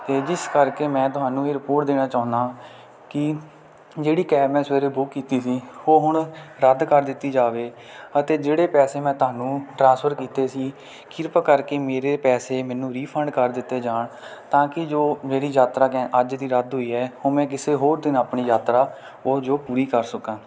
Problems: none marked